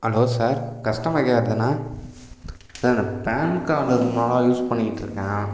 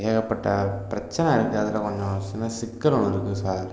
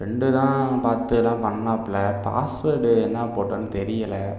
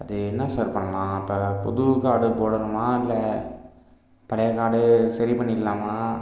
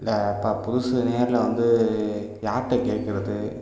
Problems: constant background noise